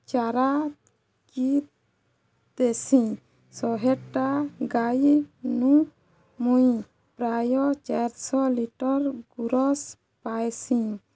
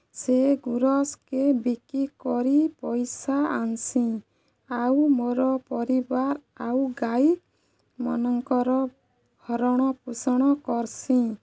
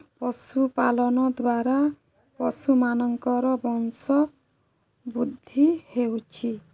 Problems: none marked